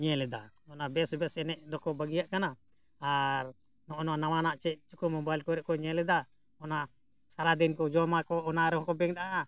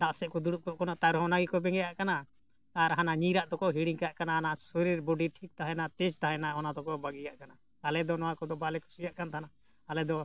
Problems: none marked